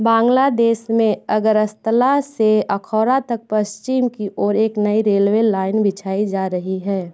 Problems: background sounds at intervals, background conversations at intervals